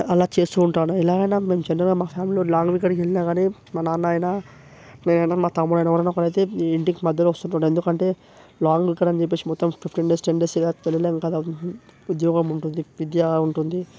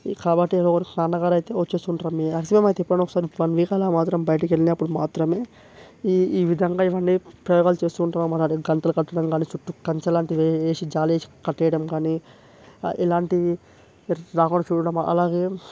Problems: none marked